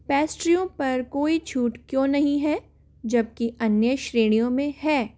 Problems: constant background noise